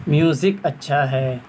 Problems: constant background noise